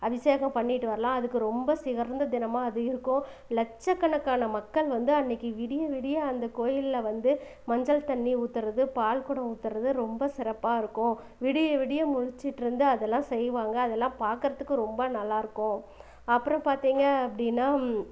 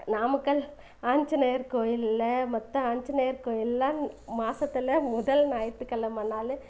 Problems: background sounds at intervals